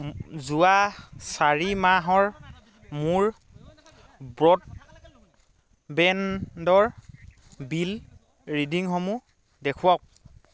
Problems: constant background noise